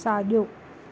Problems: constant background noise